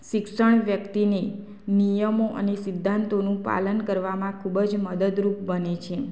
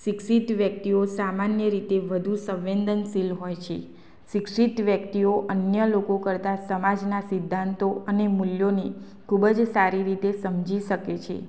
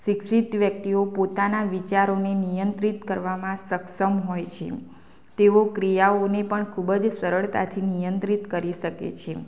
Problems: constant background noise